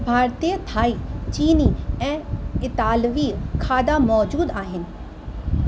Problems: constant background noise